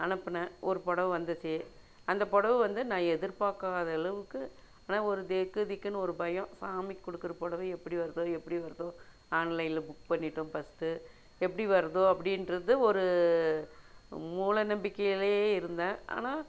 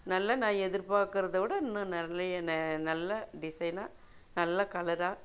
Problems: none marked